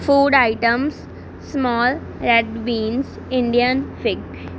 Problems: none marked